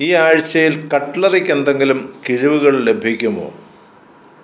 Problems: none marked